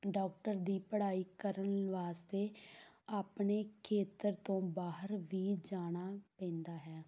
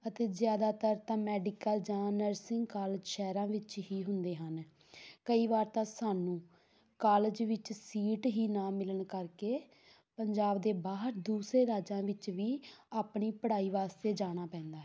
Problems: none marked